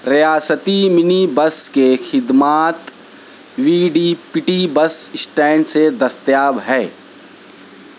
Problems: constant background noise